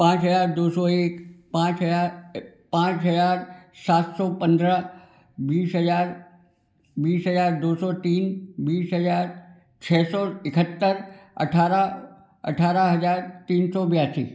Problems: none marked